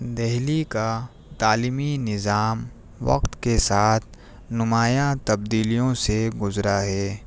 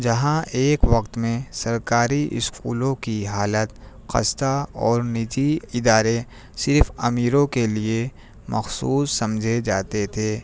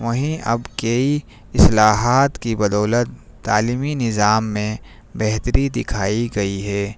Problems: none marked